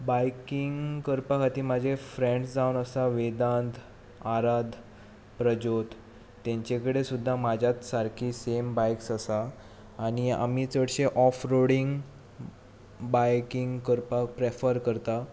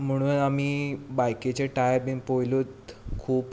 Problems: background sounds at intervals